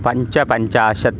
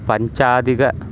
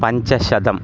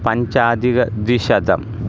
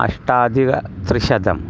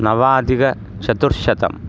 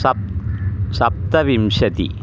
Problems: none marked